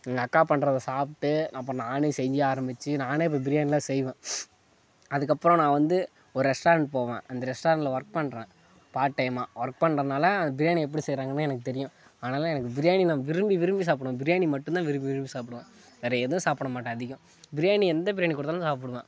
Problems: background sounds at intervals, background conversations at intervals